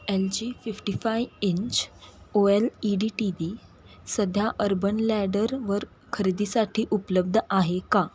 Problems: constant background noise